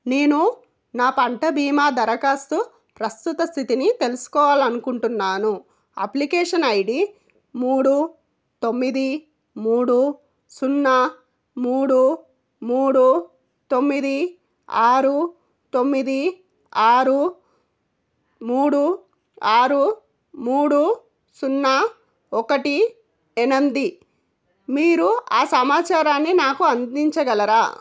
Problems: none marked